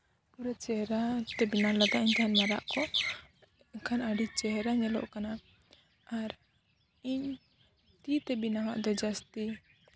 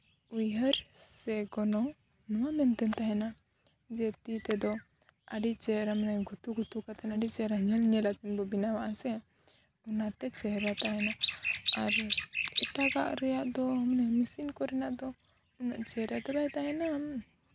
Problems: background sounds at intervals, low volume